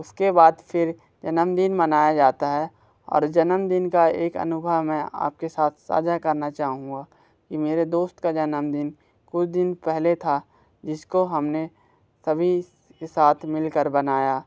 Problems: background sounds at intervals